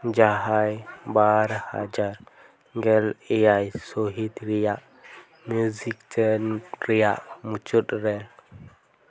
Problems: none marked